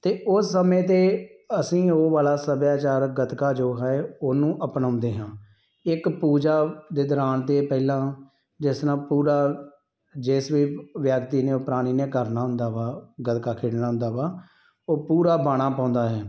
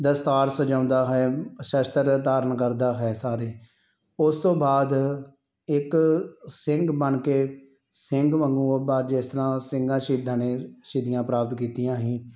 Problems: background sounds at intervals